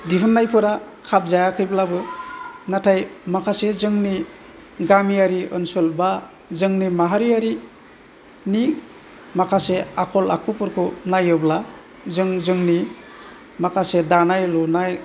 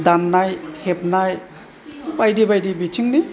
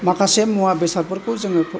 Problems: low volume